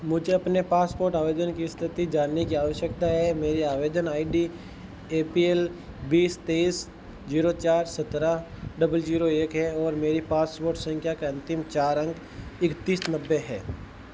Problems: constant background noise